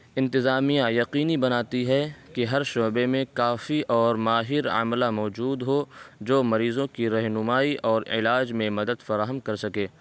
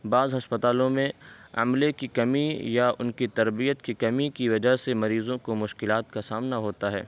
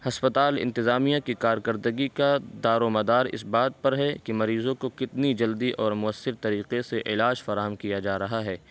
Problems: constant background noise